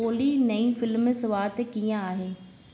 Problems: constant background noise, echo